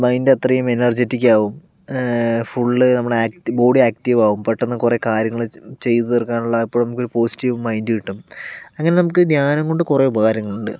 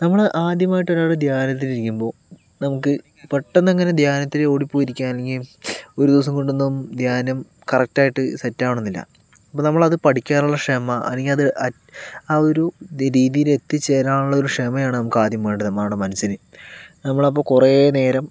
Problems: none marked